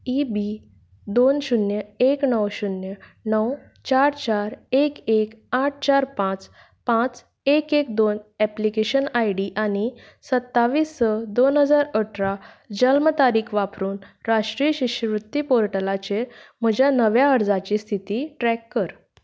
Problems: none marked